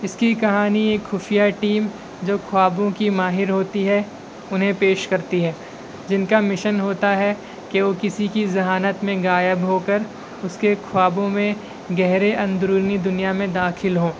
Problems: constant background noise